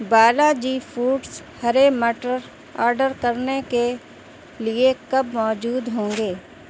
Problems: none marked